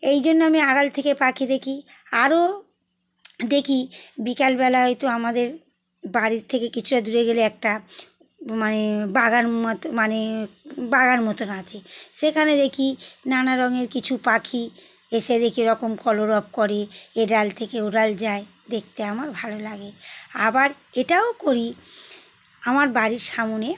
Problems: none marked